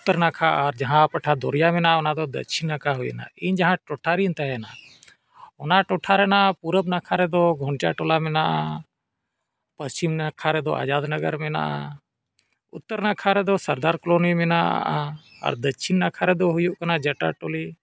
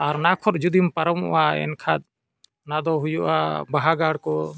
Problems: none marked